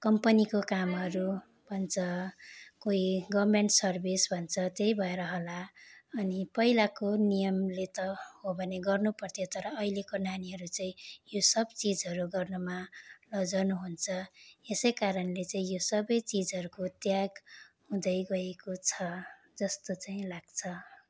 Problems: none marked